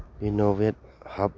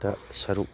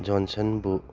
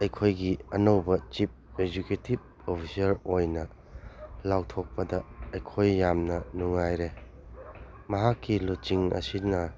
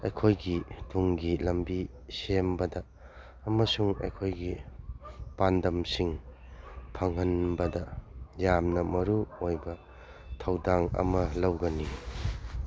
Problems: background sounds at intervals